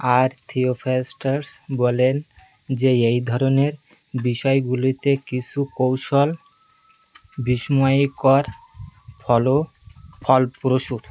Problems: constant background noise, background conversations at intervals